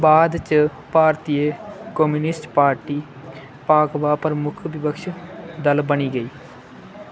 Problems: constant background noise